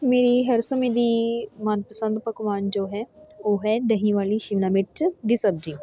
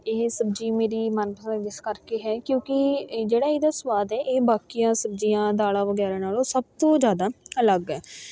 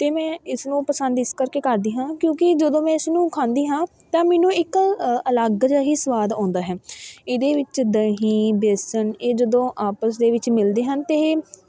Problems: constant background noise, continuous background conversations